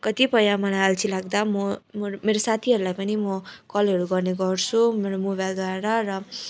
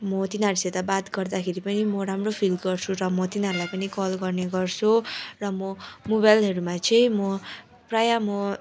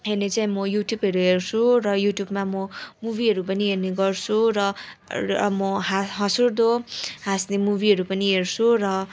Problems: constant background noise, continuous background conversations